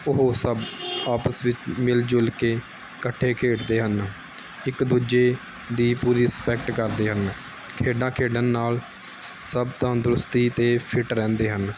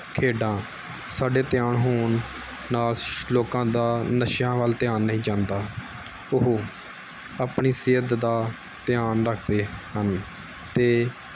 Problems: background sounds at intervals